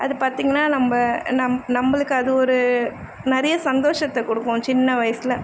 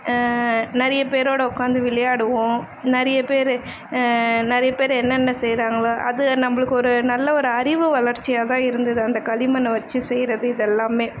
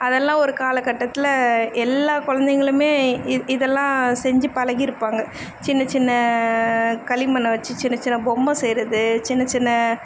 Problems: constant background noise